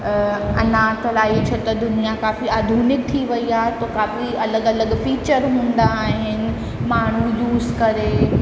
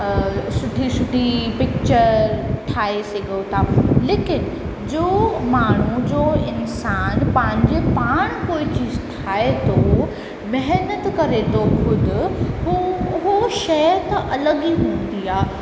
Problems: constant background noise, echo